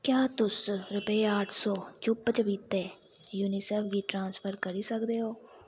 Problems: background sounds at intervals